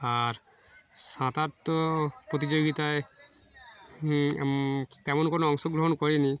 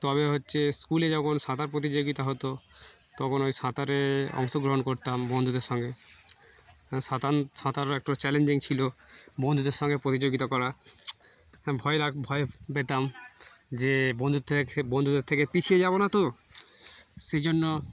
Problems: constant background noise, background conversations at intervals